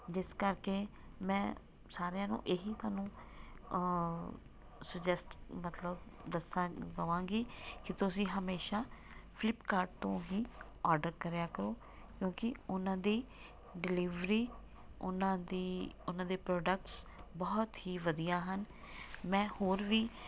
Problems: background sounds at intervals